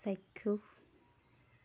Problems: none marked